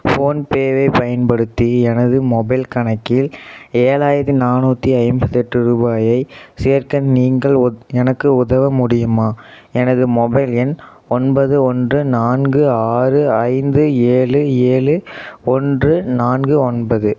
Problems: none marked